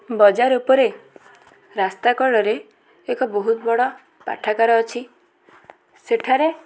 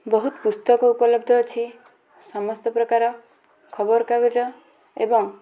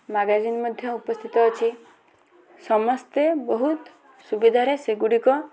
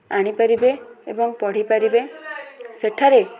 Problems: constant background noise, continuous background conversations